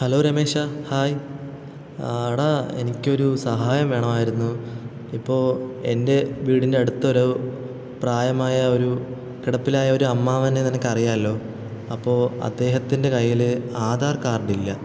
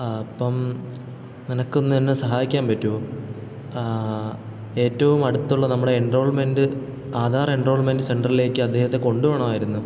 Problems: constant background noise